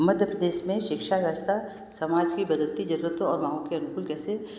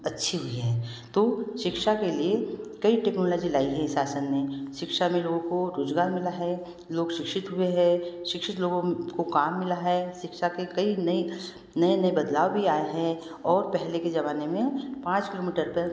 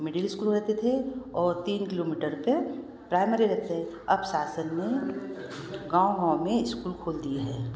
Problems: constant background noise